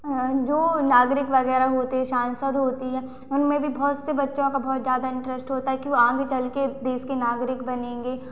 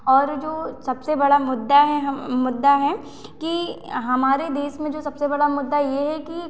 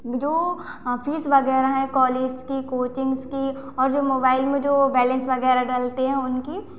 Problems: constant background noise, echo